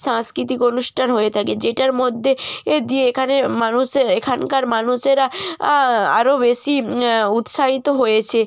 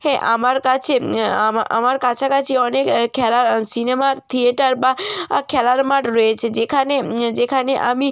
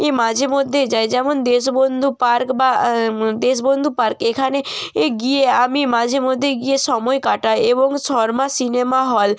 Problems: background sounds at intervals